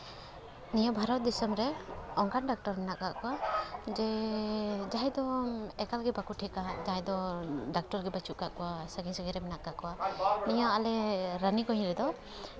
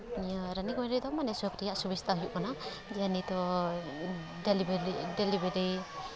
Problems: none marked